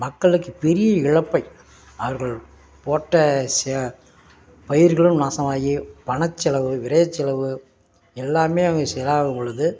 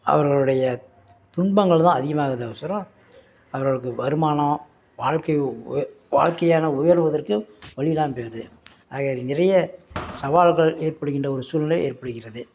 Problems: background sounds at intervals